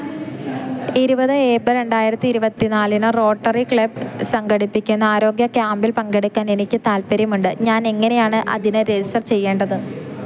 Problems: none marked